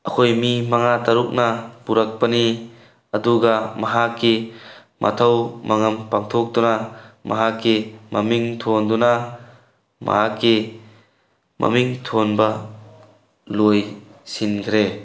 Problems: none marked